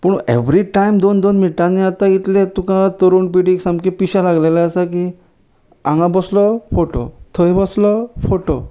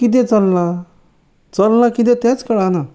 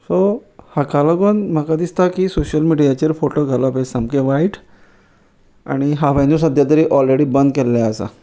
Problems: none marked